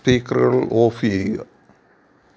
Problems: none marked